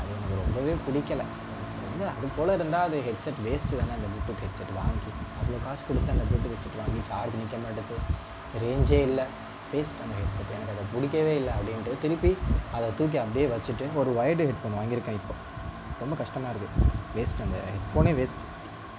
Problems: constant background noise, low volume